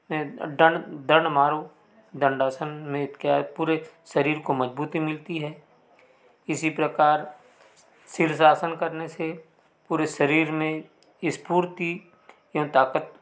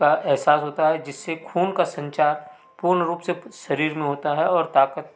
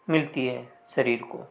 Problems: none marked